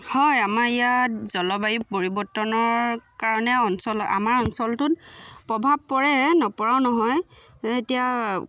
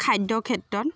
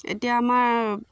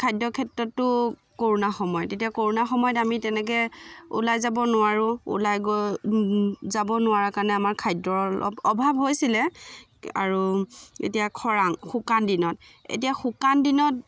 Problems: none marked